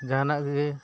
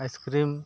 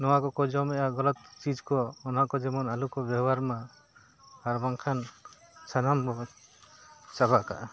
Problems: background sounds at intervals, background conversations at intervals